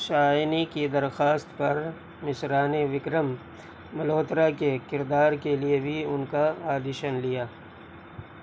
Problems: none marked